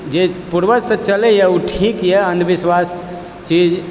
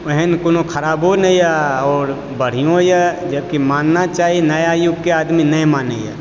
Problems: constant background noise